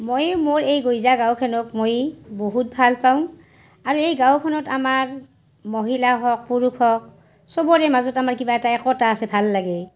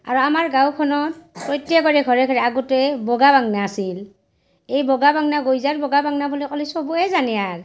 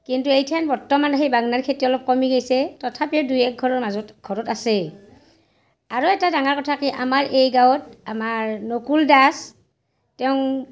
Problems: none marked